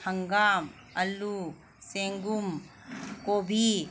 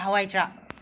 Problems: none marked